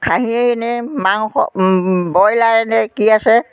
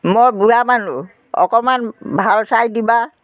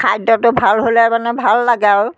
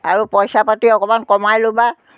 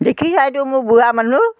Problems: continuous background conversations